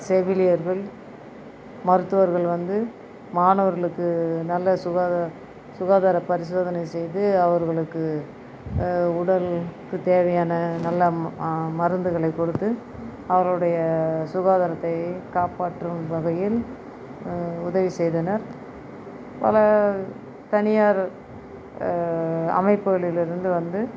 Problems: none marked